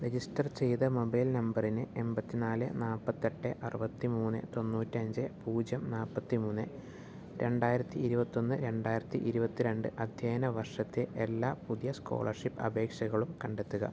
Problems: none marked